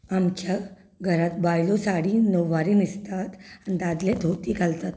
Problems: background sounds at intervals